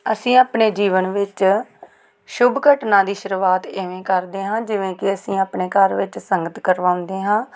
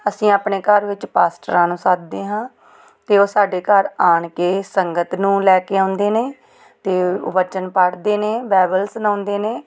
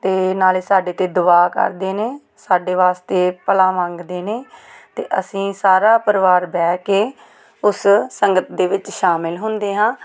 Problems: background sounds at intervals